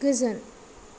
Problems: constant background noise